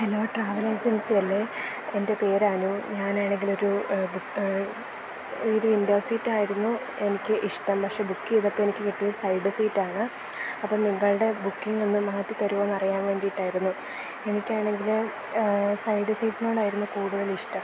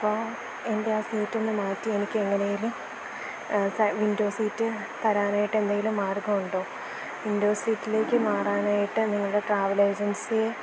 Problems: constant background noise